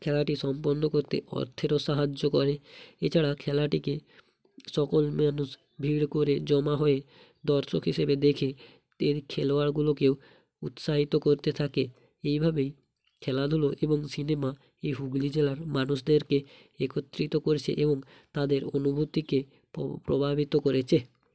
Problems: none marked